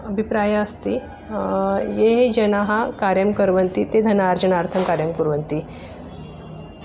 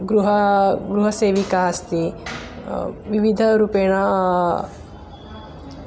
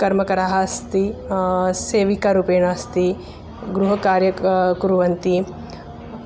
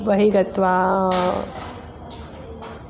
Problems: constant background noise